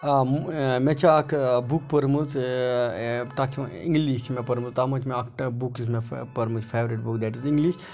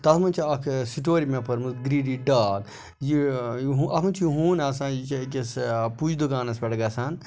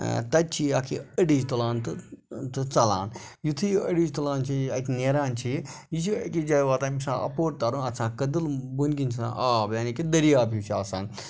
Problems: background sounds at intervals